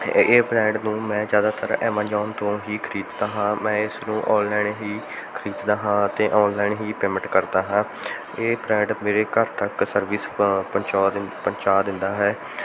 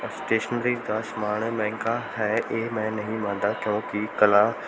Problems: background sounds at intervals